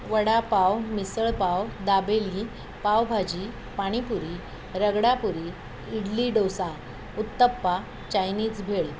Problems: none marked